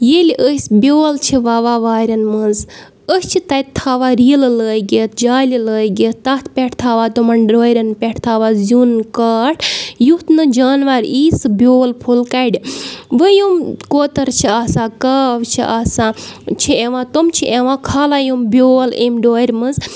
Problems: none marked